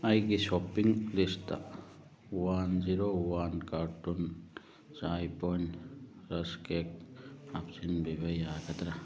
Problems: none marked